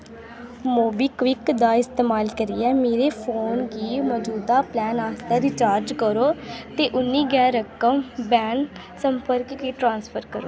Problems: constant background noise